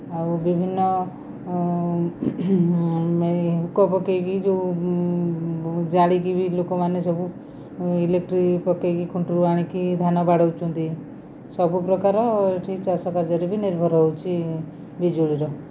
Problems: constant background noise